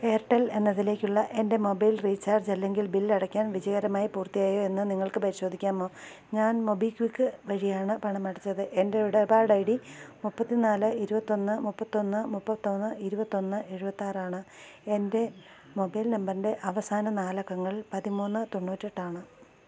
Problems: constant background noise, low volume